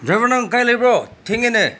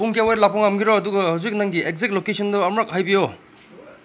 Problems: constant background noise